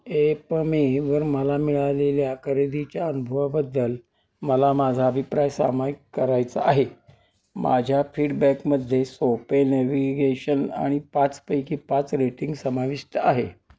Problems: constant background noise